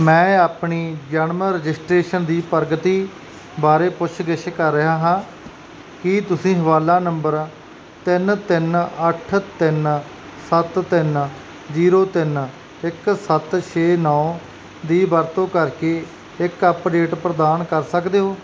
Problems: none marked